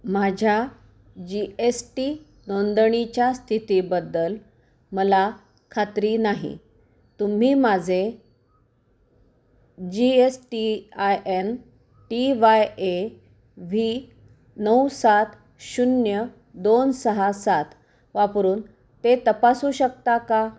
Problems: none marked